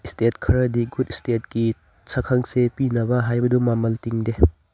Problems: background sounds at intervals